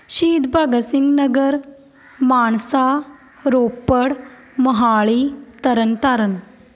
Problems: background conversations at intervals